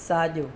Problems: none marked